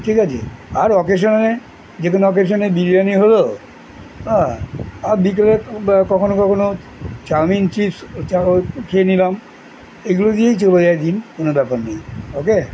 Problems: constant background noise